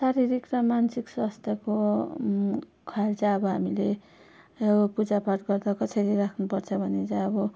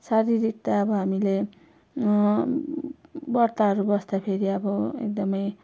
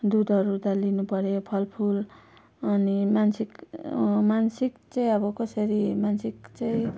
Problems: none marked